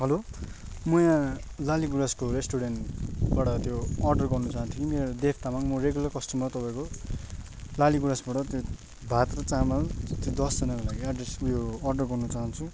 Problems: background sounds at intervals